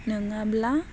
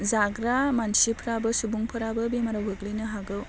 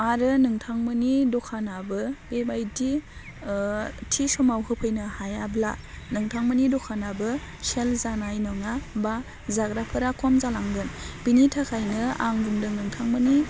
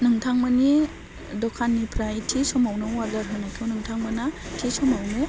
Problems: none marked